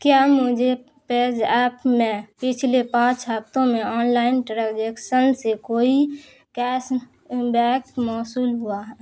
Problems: none marked